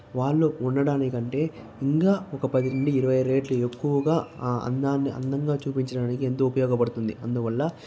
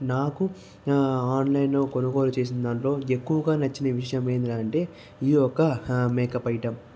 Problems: none marked